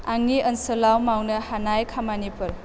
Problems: constant background noise